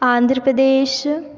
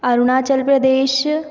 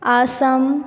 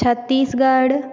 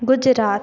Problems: constant background noise, echo